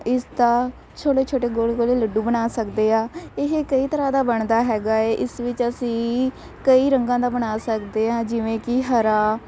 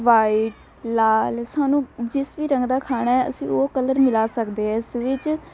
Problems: none marked